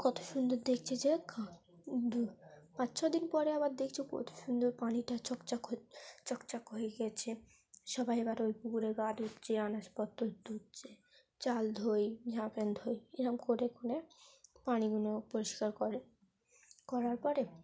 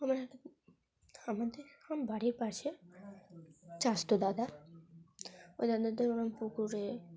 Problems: background sounds at intervals, background conversations at intervals